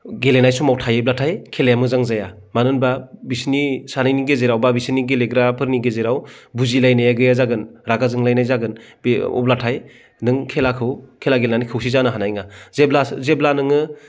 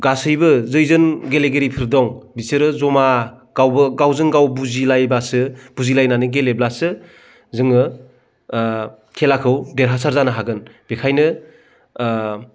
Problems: none marked